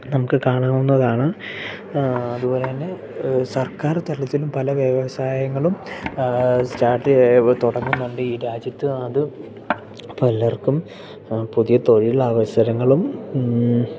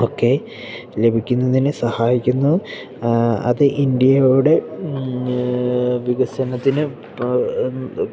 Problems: background sounds at intervals